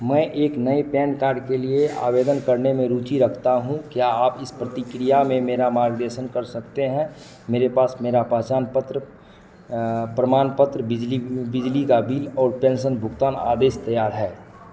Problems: echo